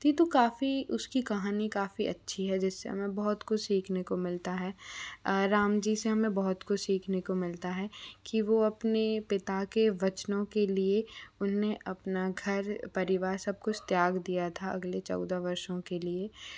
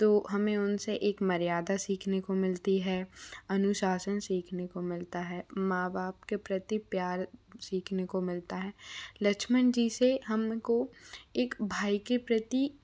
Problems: low volume